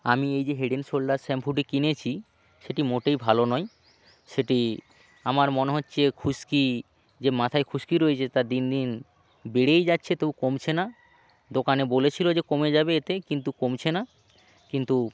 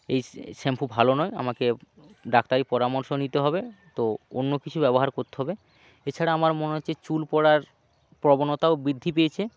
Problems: background sounds at intervals, background conversations at intervals